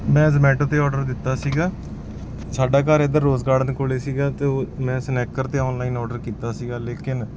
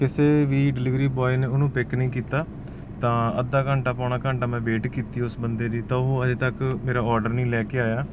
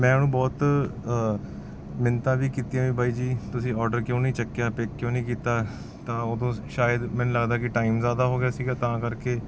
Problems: none marked